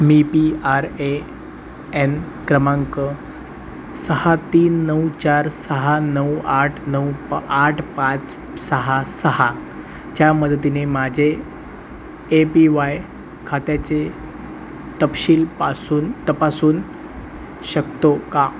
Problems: none marked